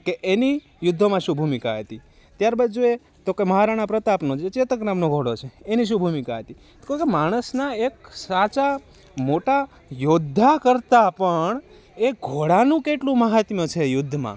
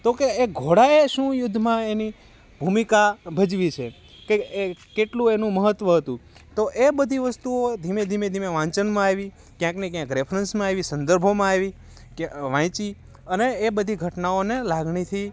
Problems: constant background noise